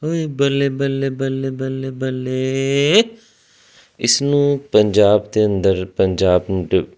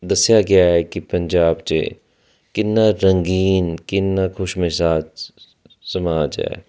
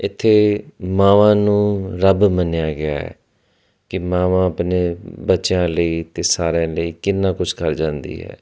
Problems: constant background noise